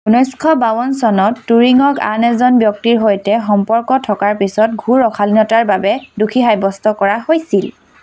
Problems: constant background noise